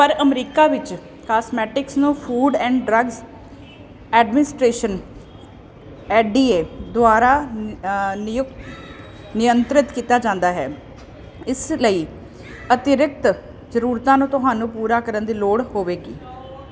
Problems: none marked